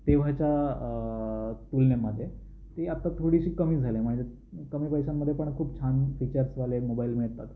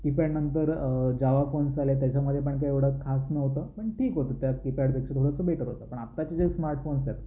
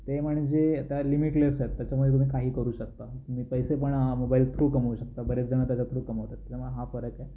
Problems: none marked